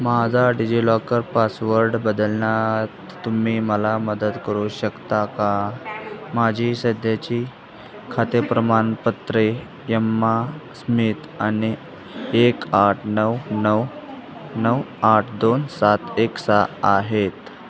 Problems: constant background noise, continuous background conversations